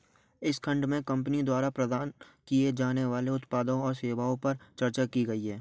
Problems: none marked